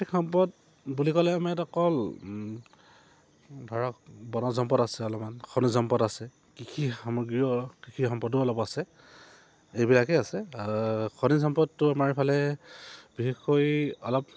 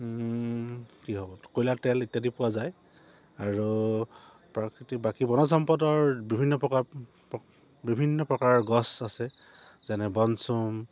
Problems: low volume